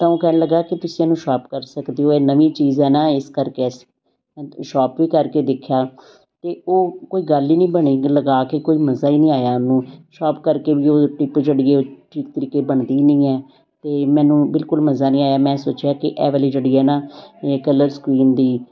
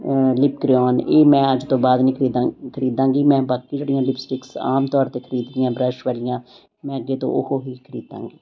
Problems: constant background noise